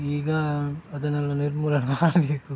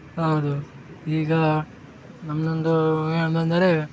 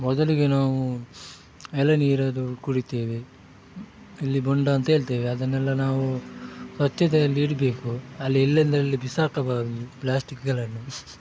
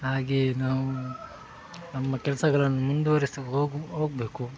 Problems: background sounds at intervals